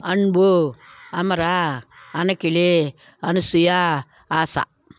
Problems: none marked